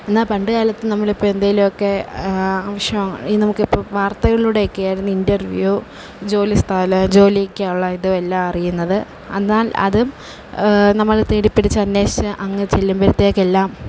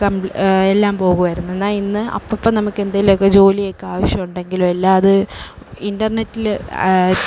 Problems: constant background noise, low volume